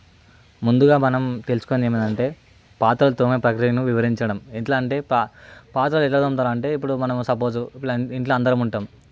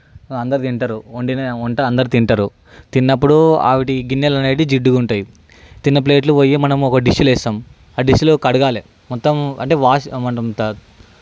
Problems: none marked